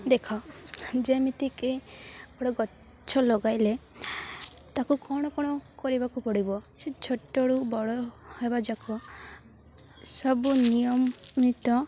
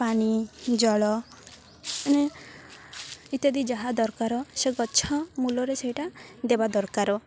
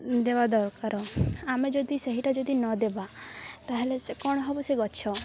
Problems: constant background noise, continuous background conversations